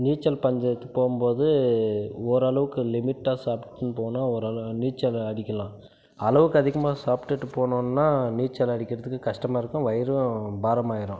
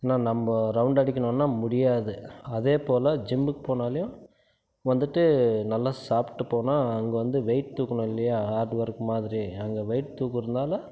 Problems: none marked